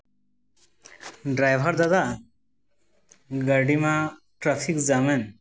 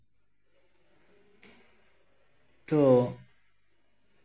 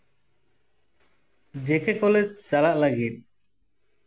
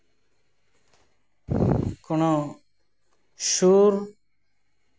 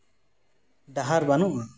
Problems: constant background noise